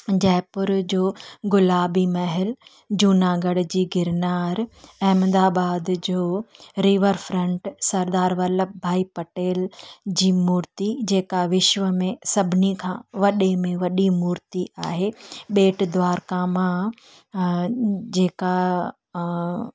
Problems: none marked